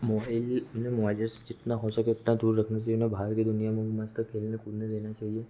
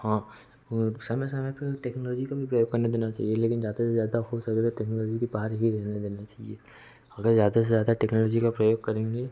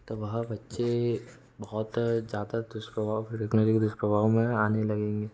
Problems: background sounds at intervals